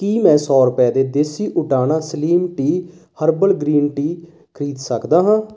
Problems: constant background noise